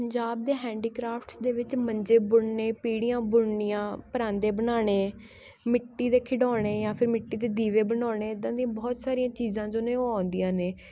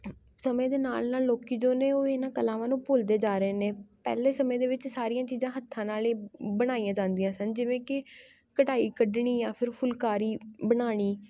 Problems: background sounds at intervals, background conversations at intervals